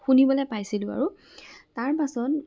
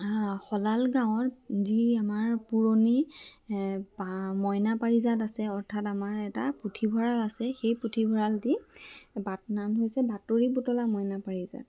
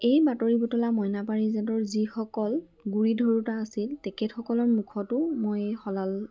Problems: none marked